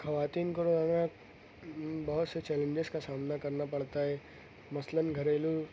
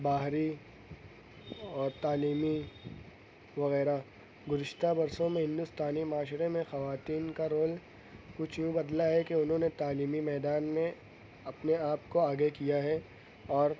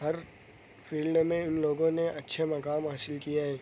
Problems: low volume